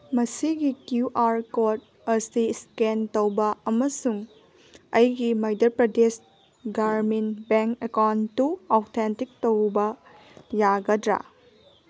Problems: none marked